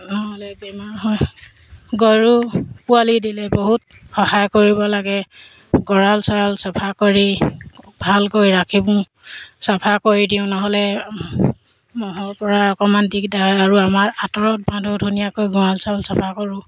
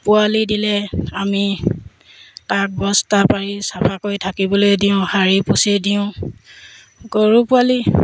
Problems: background sounds at intervals